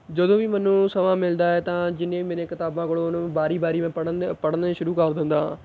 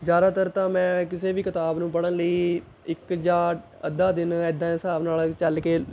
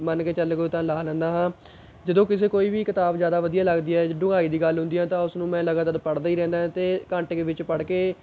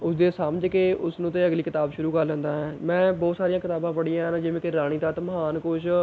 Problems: none marked